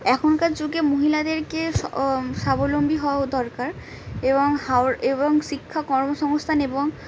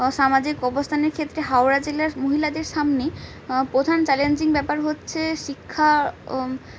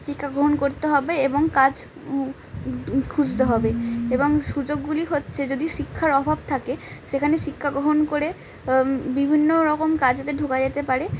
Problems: none marked